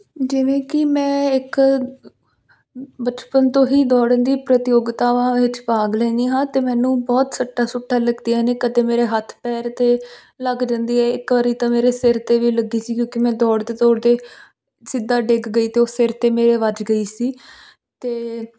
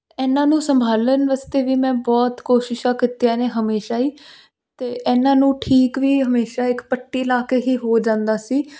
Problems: constant background noise